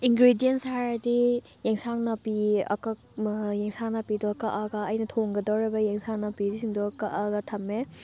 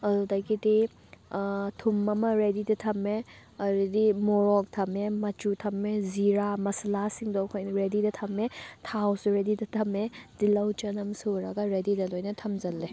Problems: none marked